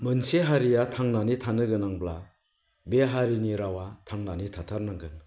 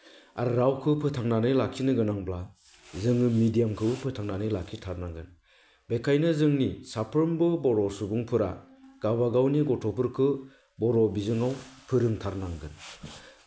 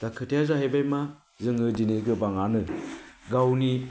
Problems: none marked